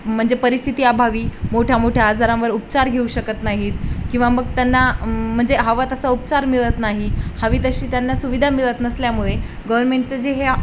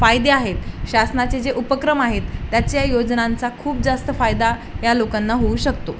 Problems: none marked